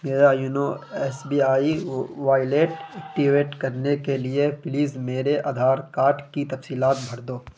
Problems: constant background noise